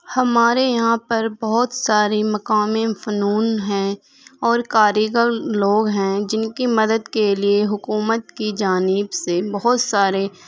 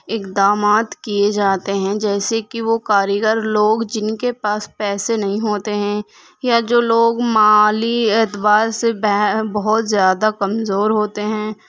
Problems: constant background noise